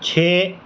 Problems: none marked